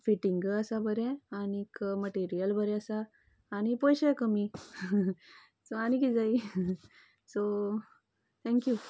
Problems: none marked